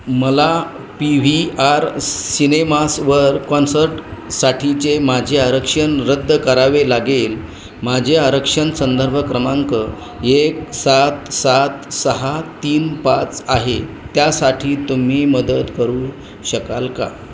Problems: constant background noise, background conversations at intervals